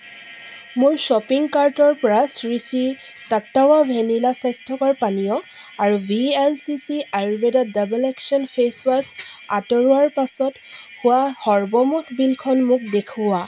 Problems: none marked